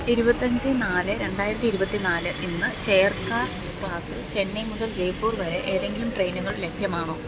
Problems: background sounds at intervals